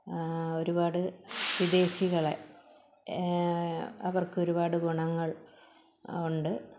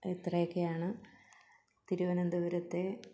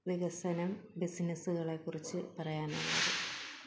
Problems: background sounds at intervals, low volume